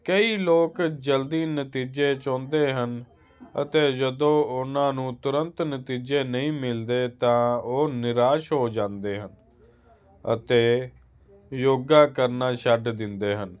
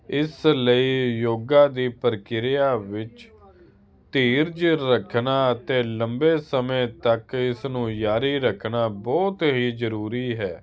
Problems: none marked